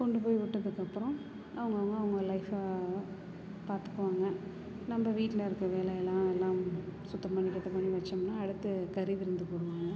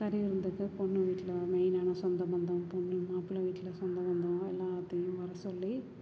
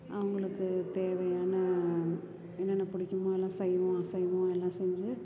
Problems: continuous background conversations